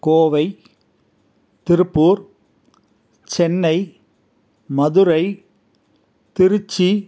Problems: none marked